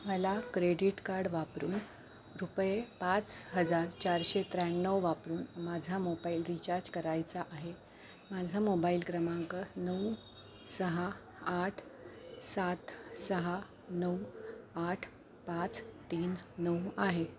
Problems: none marked